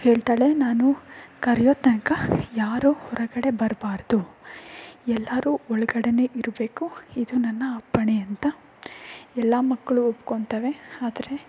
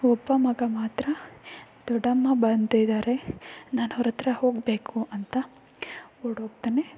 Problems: none marked